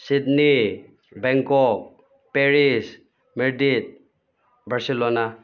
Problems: background sounds at intervals